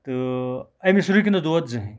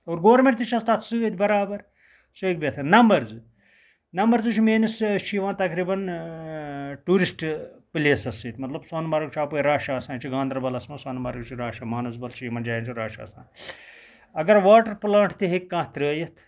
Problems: background sounds at intervals